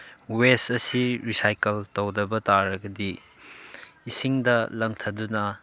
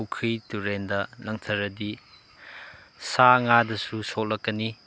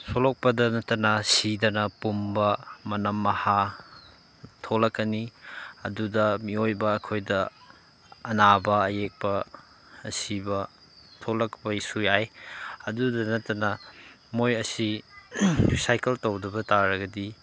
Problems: none marked